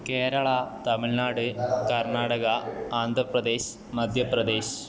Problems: none marked